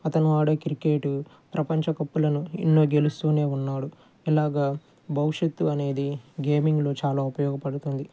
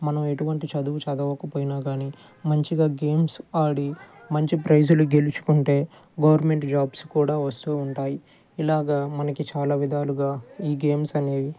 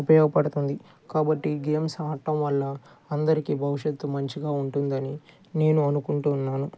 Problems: low volume